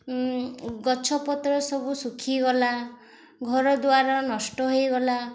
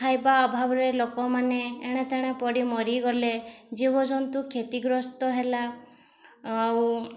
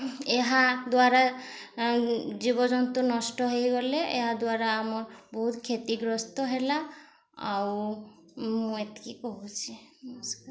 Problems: constant background noise, background conversations at intervals